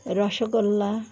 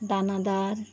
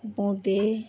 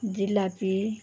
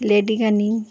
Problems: none marked